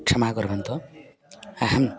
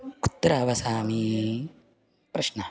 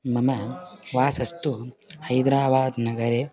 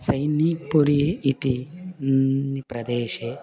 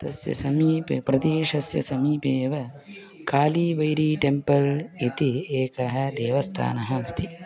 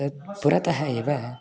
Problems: background sounds at intervals